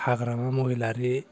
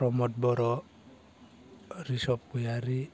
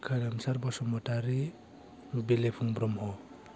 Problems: none marked